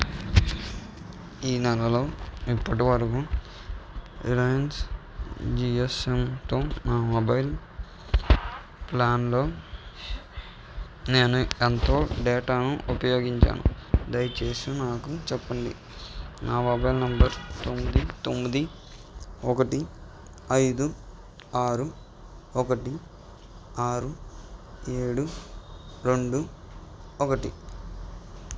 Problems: background sounds at intervals